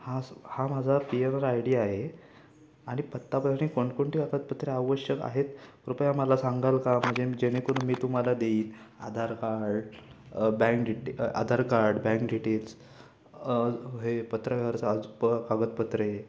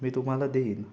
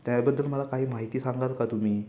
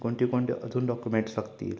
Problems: constant background noise